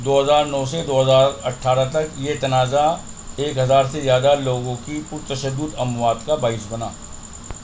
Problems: constant background noise